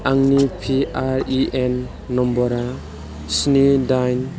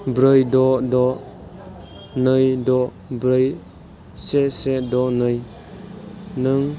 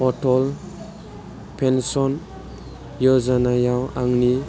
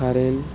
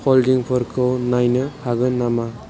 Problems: none marked